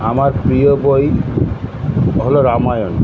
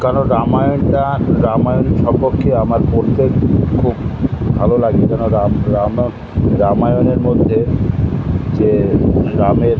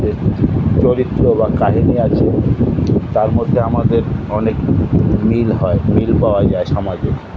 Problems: constant background noise